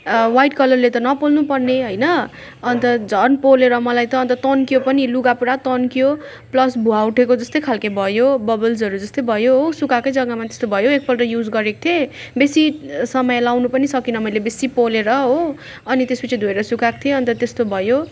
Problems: background sounds at intervals